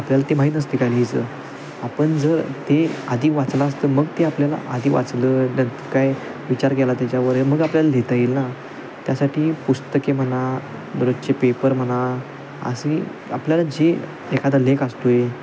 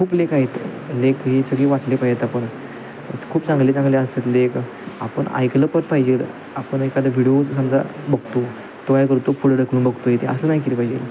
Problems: constant background noise